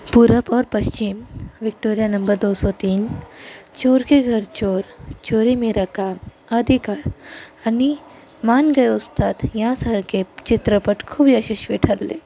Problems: constant background noise, background conversations at intervals